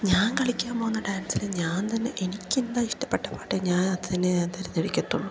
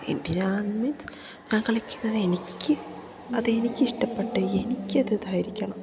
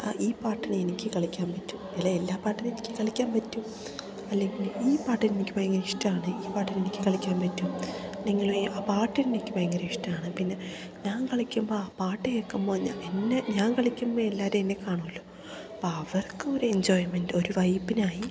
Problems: none marked